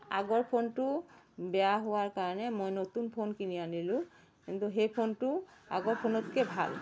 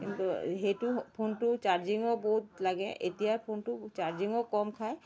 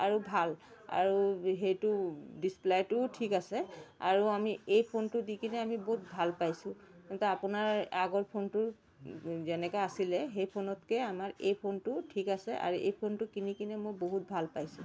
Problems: constant background noise